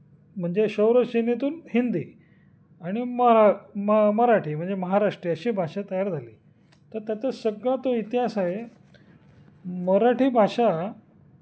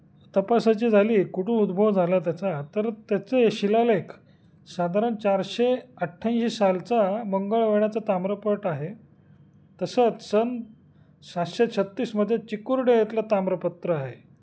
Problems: constant background noise, background conversations at intervals